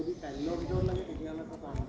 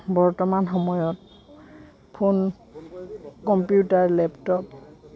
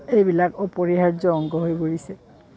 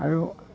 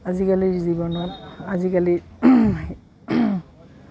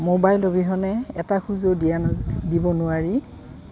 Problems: background sounds at intervals